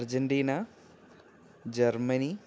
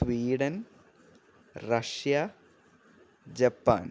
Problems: constant background noise